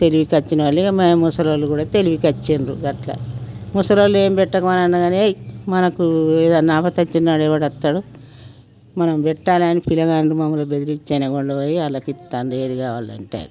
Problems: background sounds at intervals